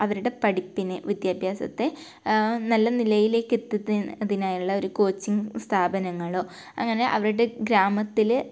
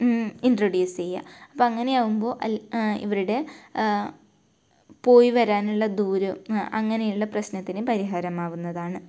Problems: low volume